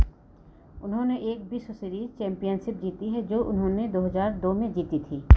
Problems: constant background noise